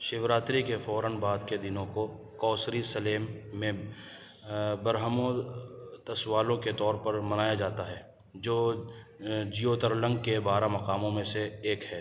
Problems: none marked